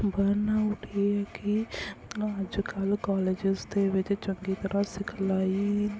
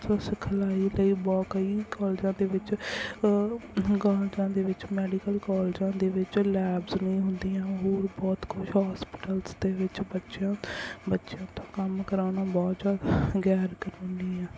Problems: none marked